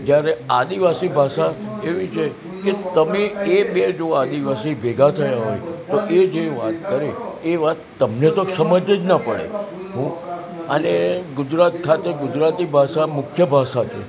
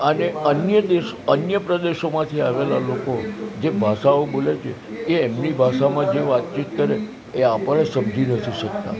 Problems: constant background noise